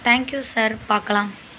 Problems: constant background noise